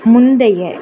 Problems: constant background noise